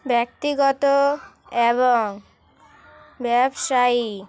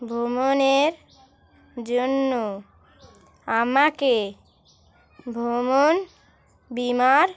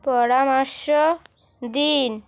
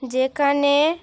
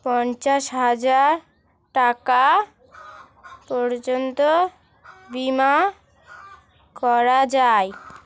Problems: constant background noise, continuous background conversations